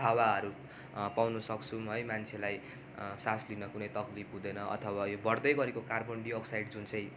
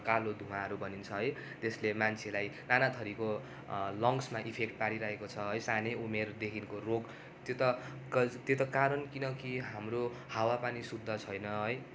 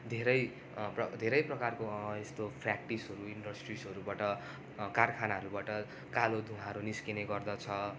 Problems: constant background noise